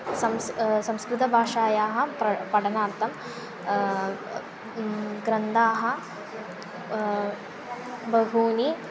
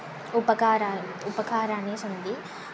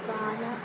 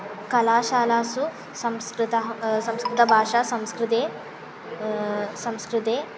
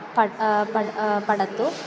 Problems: constant background noise, continuous background conversations